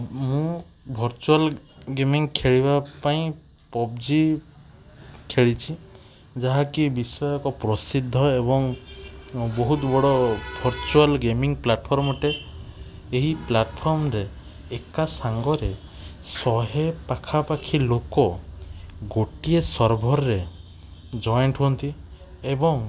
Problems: constant background noise